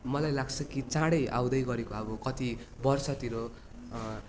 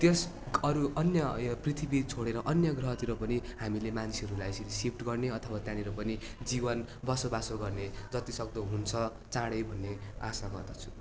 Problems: constant background noise